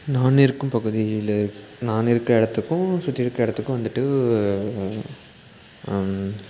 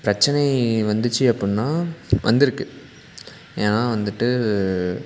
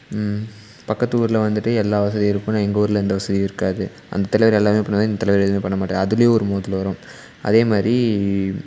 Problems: constant background noise